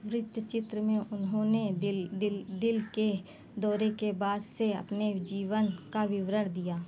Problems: constant background noise